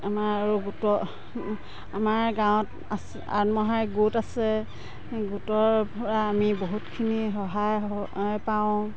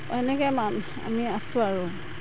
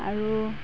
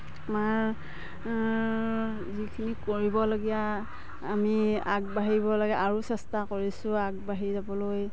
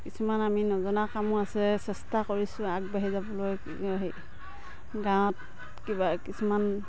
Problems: background sounds at intervals